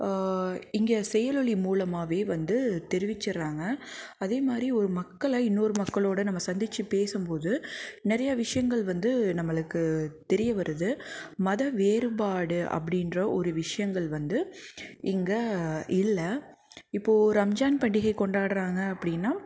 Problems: background sounds at intervals, background conversations at intervals